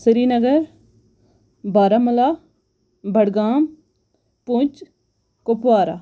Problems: none marked